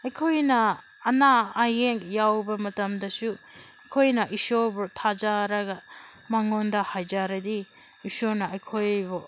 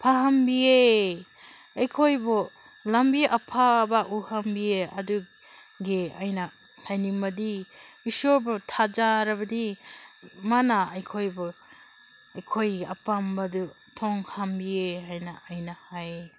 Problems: constant background noise